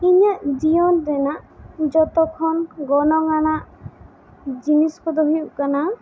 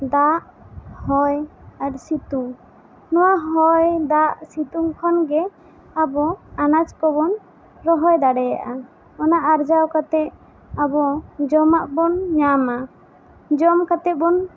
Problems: constant background noise